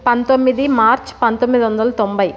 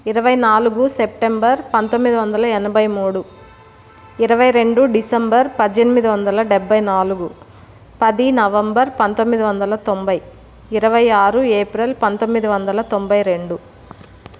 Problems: none marked